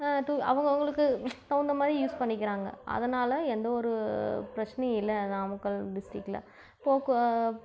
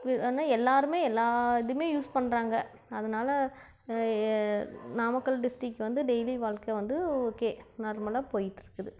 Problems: low volume